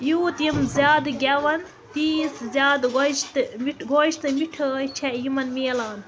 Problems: constant background noise, continuous background conversations